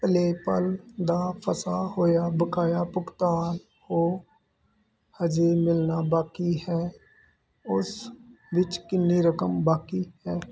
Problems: constant background noise